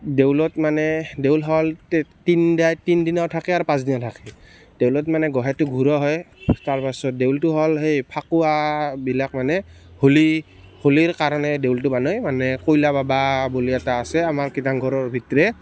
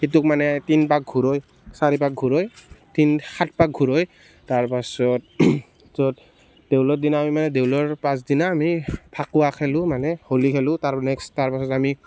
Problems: constant background noise